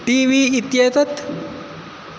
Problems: constant background noise